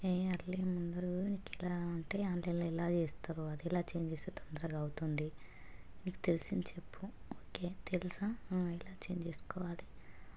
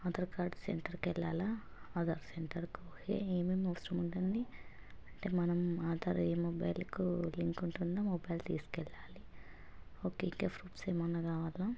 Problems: constant background noise, low volume